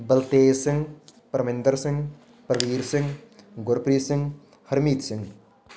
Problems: continuous background conversations